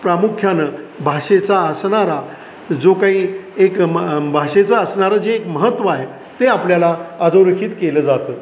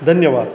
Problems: background sounds at intervals